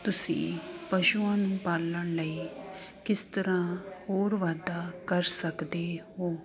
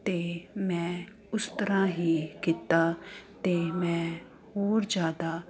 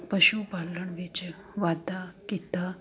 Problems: constant background noise